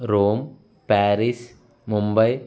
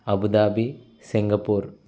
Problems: constant background noise